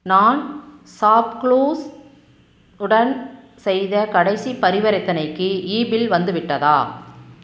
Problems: none marked